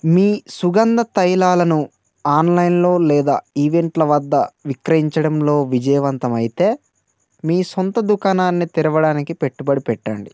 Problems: constant background noise